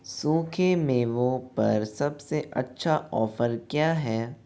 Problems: constant background noise